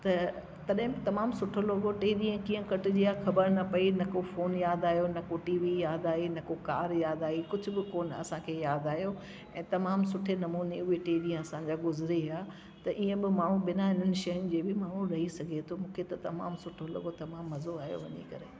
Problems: constant background noise